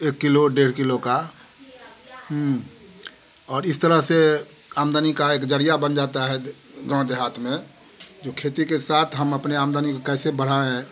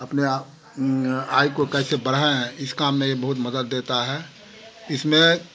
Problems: constant background noise